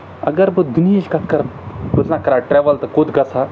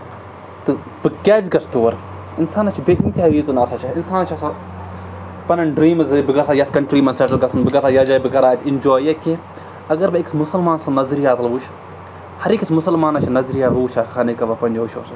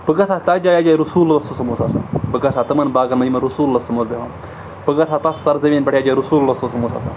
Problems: none marked